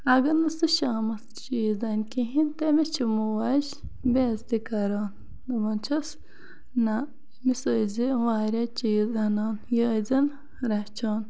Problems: constant background noise